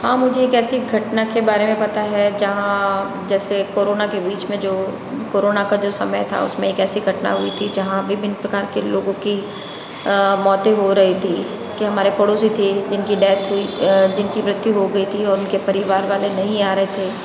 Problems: constant background noise, background conversations at intervals